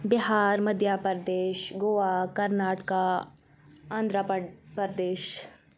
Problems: none marked